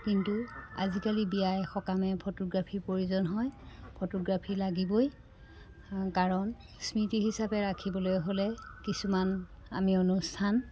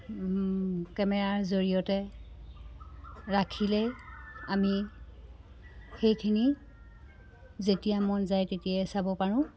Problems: constant background noise